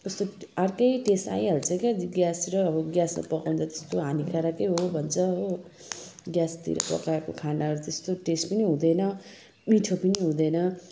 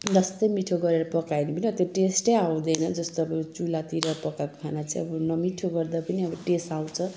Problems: none marked